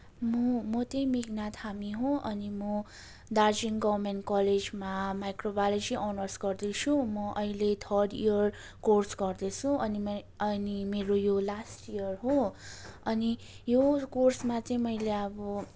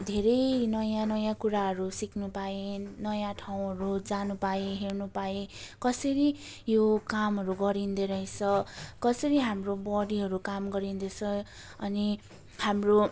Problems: none marked